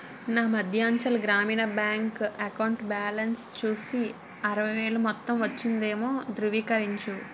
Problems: background sounds at intervals